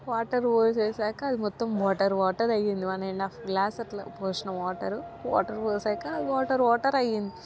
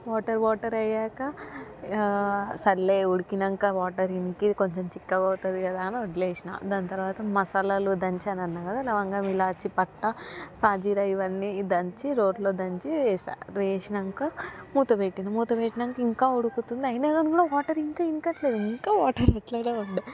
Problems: background sounds at intervals, background conversations at intervals